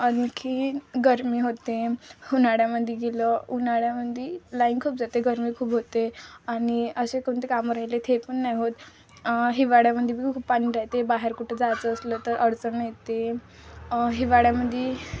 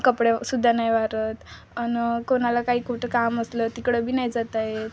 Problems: constant background noise, background conversations at intervals